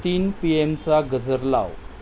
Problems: constant background noise